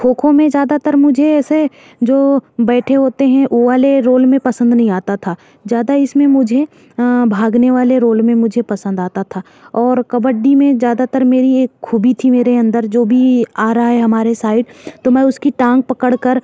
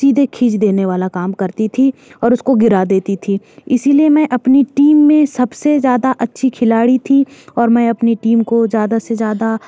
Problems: none marked